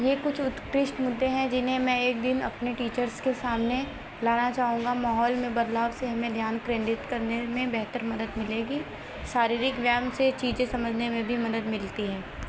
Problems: constant background noise